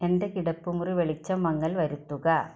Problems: background sounds at intervals